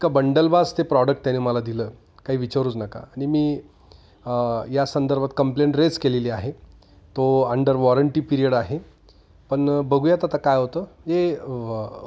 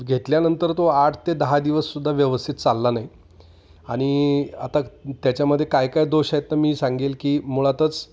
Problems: constant background noise, echo